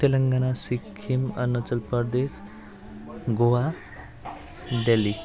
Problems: constant background noise